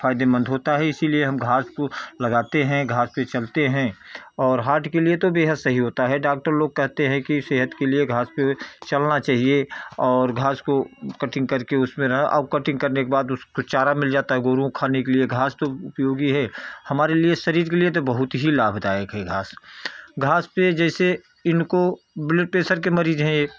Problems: none marked